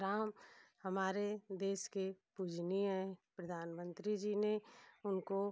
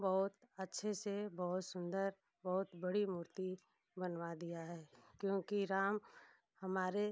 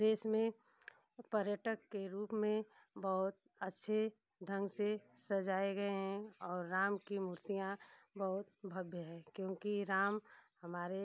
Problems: none marked